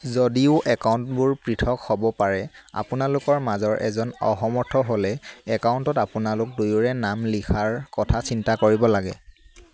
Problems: constant background noise